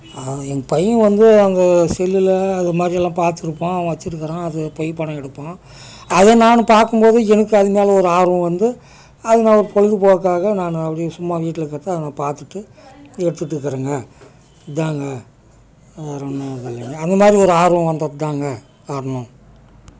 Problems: background sounds at intervals, background conversations at intervals